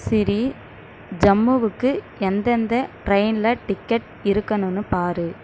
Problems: none marked